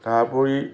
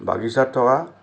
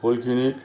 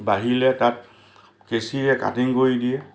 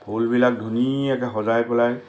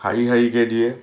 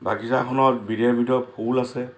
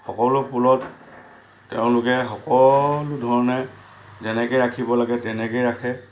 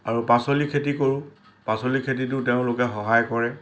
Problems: constant background noise